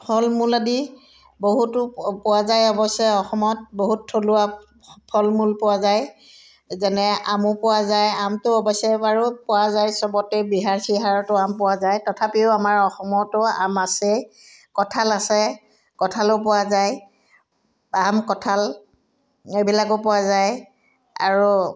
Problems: none marked